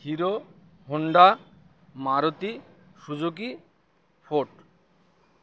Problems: constant background noise